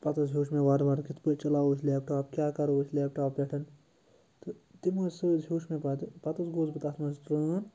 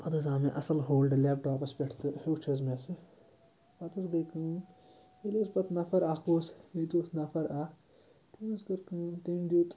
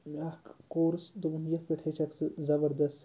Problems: constant background noise